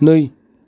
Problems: constant background noise